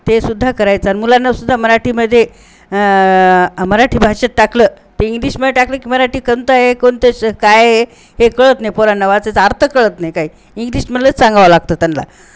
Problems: constant background noise